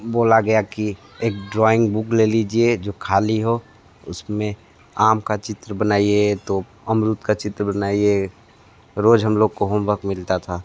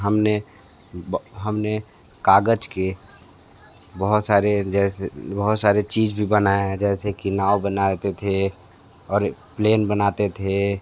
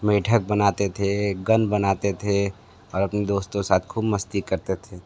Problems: constant background noise, background conversations at intervals, echo